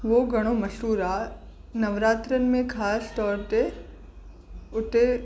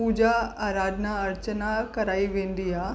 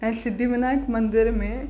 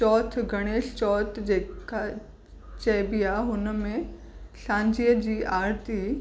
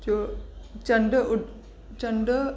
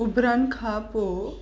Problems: constant background noise